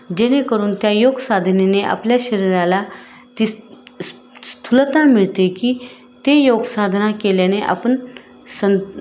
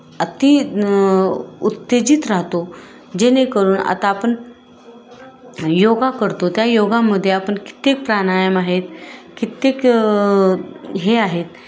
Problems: constant background noise, continuous background conversations